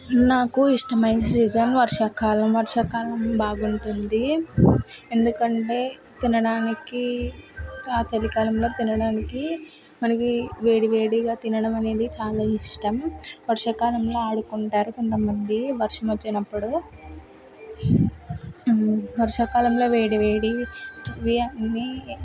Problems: constant background noise, background conversations at intervals